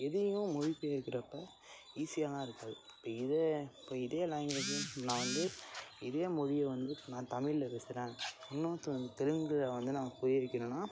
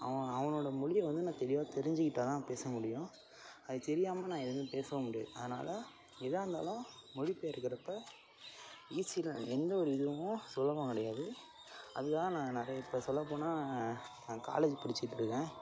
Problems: constant background noise